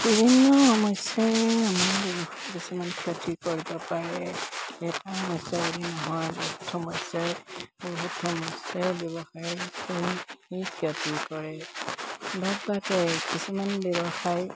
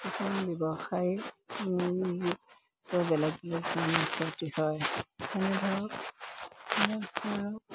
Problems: constant background noise